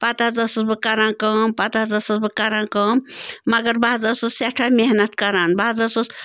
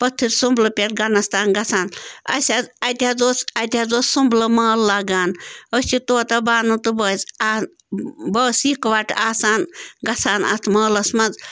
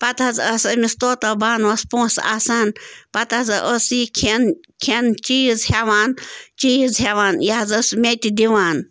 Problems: none marked